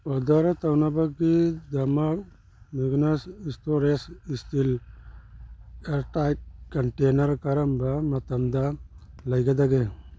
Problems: none marked